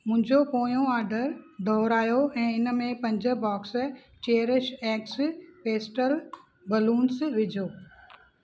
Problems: constant background noise